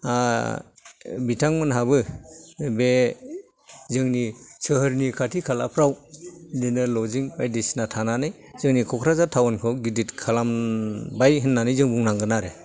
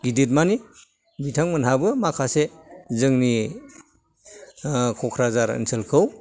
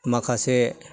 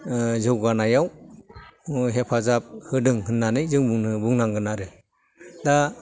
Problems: background sounds at intervals